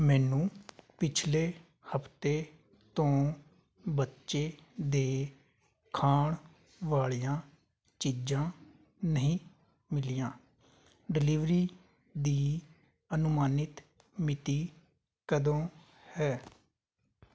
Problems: background sounds at intervals